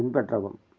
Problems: none marked